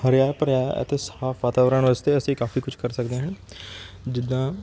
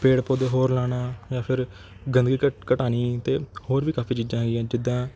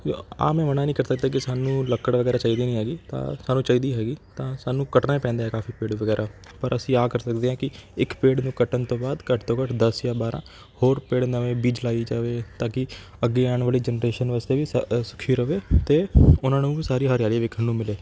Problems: none marked